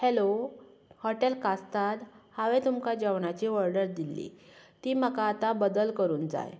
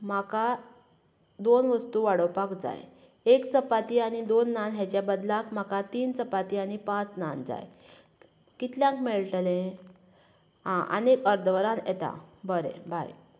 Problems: none marked